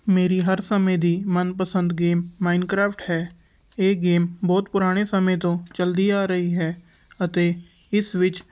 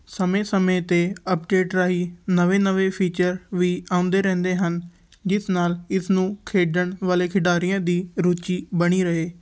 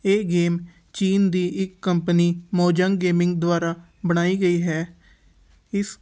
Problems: none marked